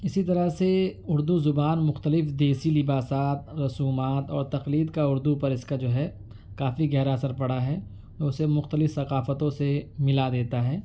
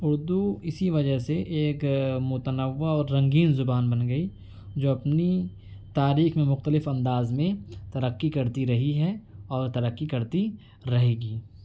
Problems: none marked